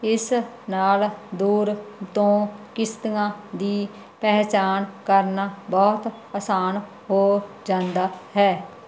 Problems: none marked